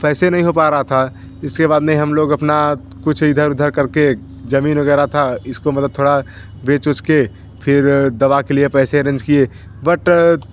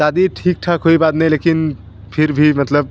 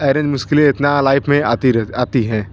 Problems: none marked